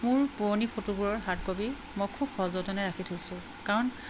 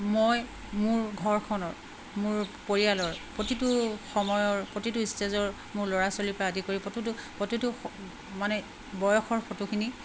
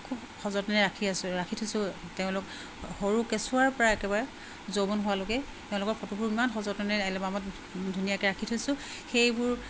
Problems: constant background noise